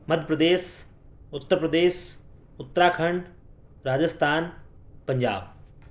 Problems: none marked